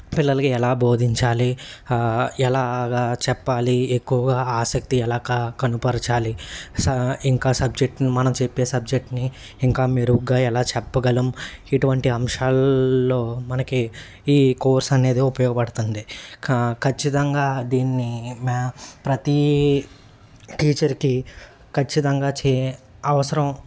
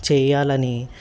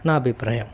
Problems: constant background noise